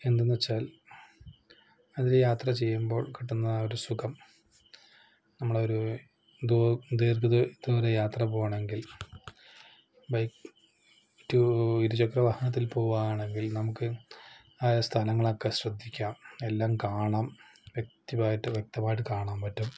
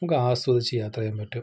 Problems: low volume